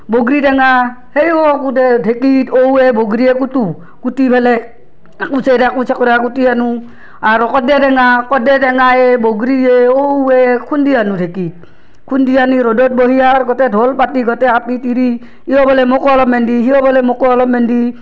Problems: background sounds at intervals